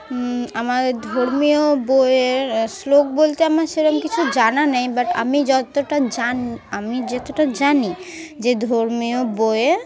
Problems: constant background noise, background conversations at intervals